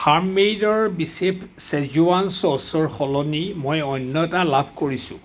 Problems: constant background noise